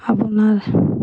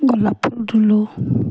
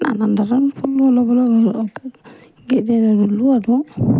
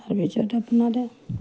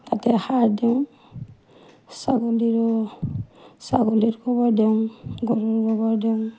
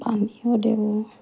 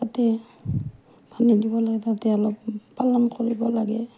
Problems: none marked